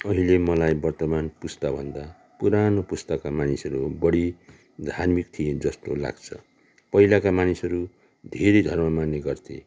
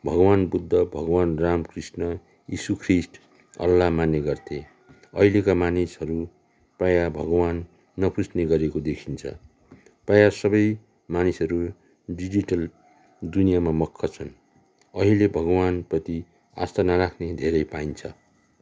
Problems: background sounds at intervals, background conversations at intervals